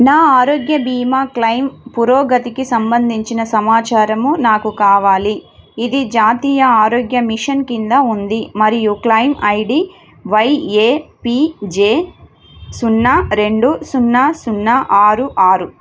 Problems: constant background noise